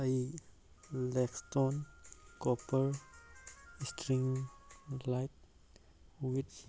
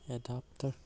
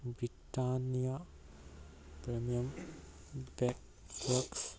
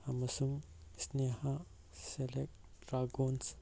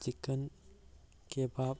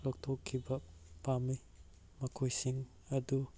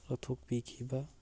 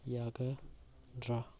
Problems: background sounds at intervals